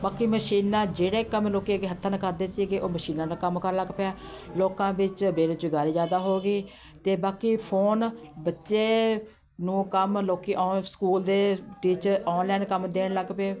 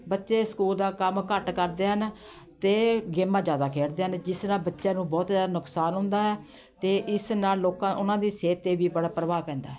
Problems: constant background noise, continuous background conversations